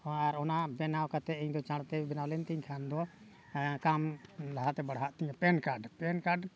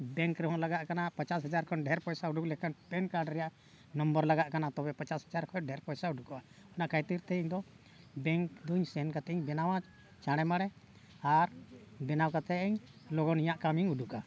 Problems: background sounds at intervals, background conversations at intervals